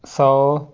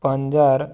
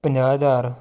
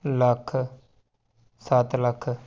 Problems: none marked